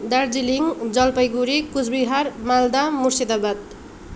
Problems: background conversations at intervals